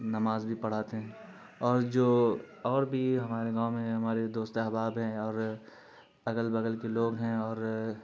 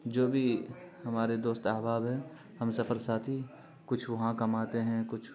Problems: constant background noise